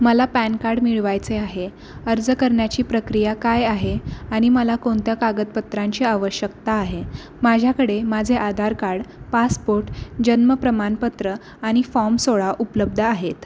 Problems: none marked